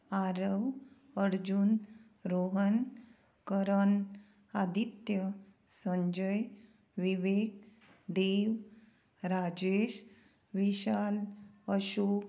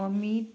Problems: constant background noise